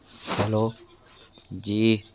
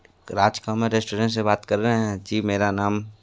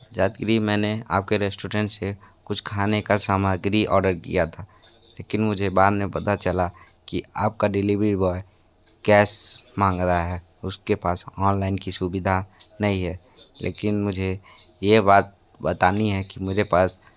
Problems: constant background noise